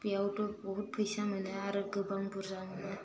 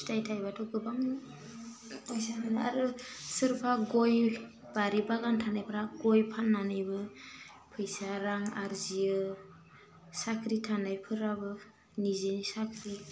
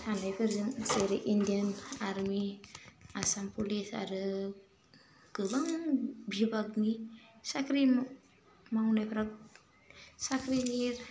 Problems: none marked